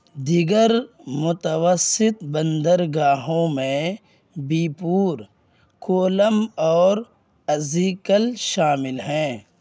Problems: constant background noise